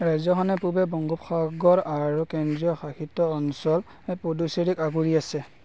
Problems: none marked